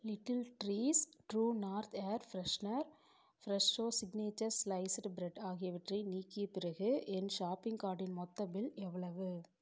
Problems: low volume